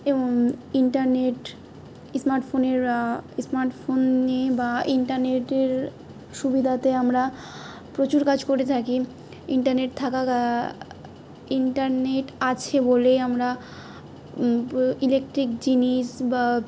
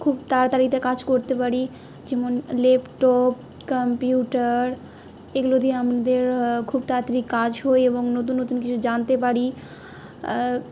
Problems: none marked